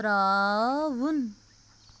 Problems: none marked